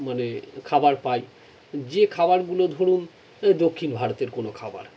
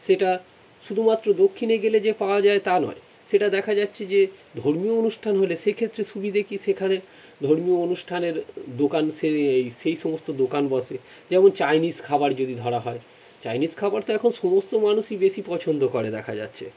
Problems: none marked